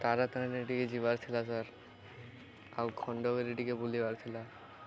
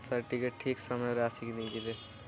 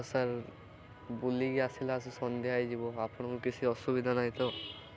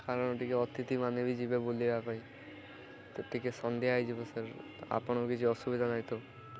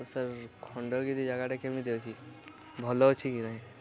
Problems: none marked